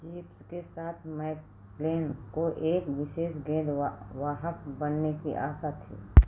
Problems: background sounds at intervals